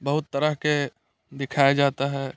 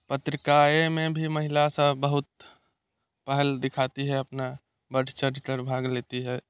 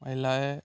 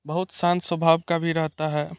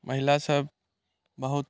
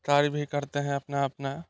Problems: none marked